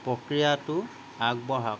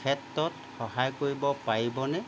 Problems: none marked